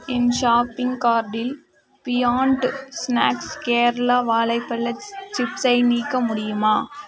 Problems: continuous background conversations